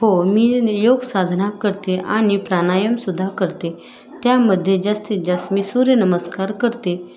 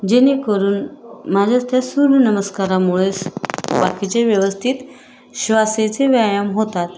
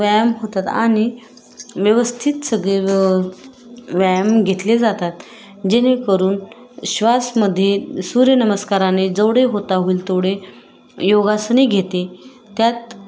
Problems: constant background noise, continuous background conversations